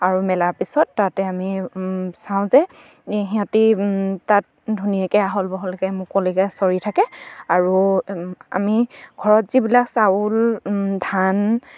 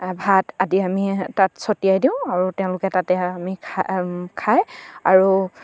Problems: none marked